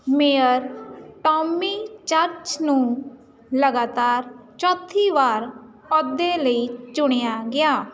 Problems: none marked